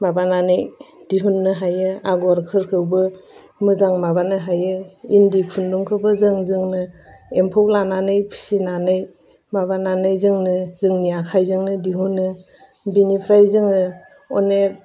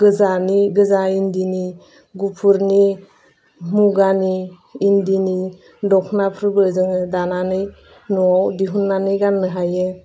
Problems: none marked